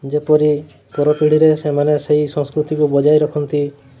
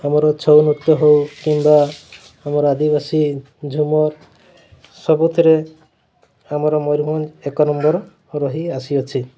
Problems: constant background noise